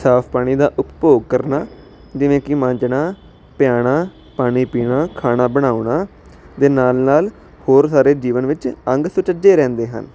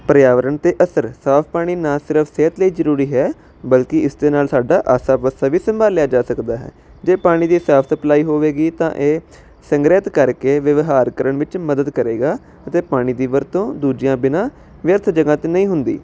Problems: constant background noise